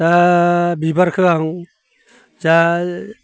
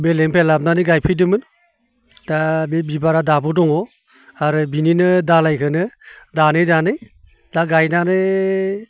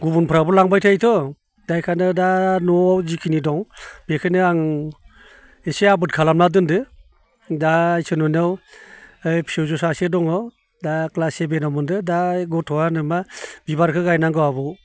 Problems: none marked